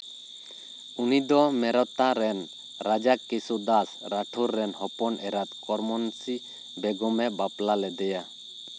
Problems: constant background noise